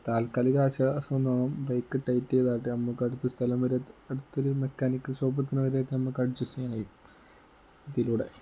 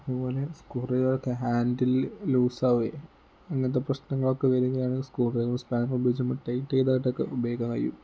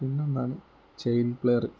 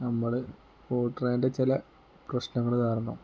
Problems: low volume